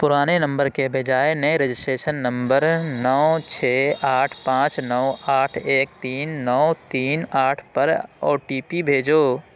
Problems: constant background noise